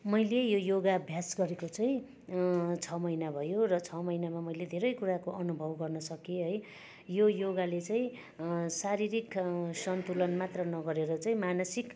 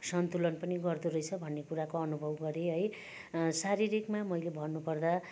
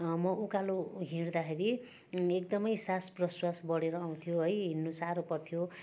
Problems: constant background noise